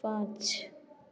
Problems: constant background noise